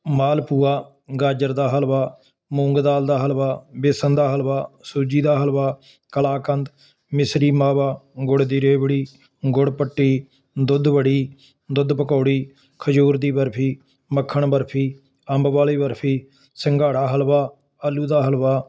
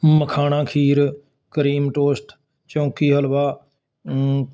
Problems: constant background noise